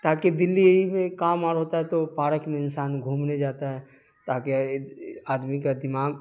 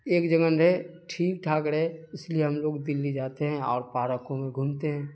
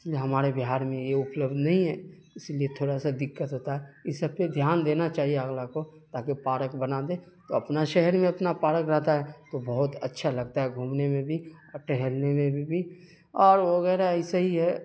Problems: constant background noise